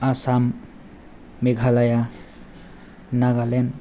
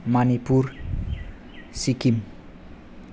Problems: low volume